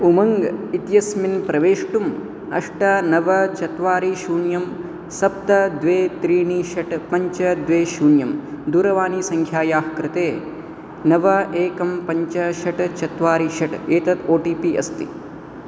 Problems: constant background noise